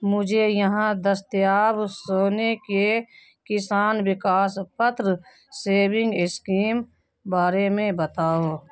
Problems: constant background noise